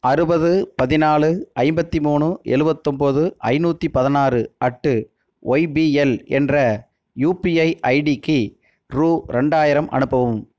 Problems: none marked